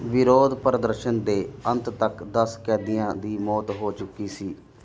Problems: none marked